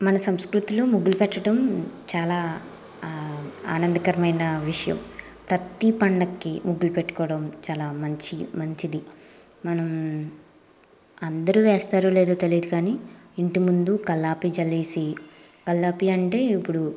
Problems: constant background noise